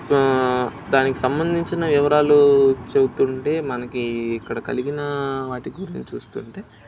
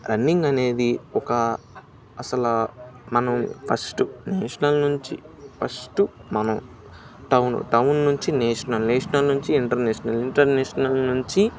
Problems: none marked